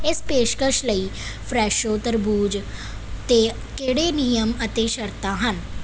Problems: none marked